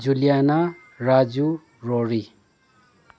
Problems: low volume